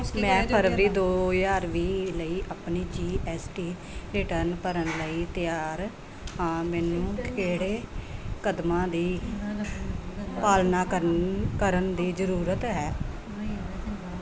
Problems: background conversations at intervals